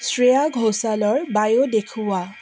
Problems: constant background noise